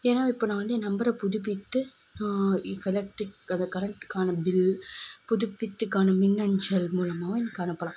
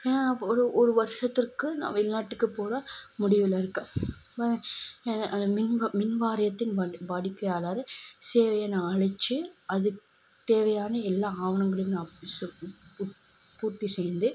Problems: constant background noise